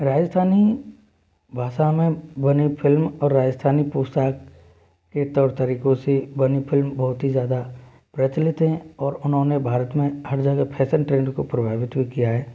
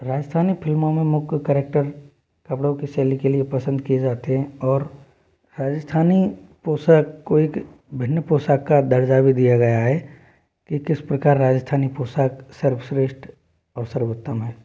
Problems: background sounds at intervals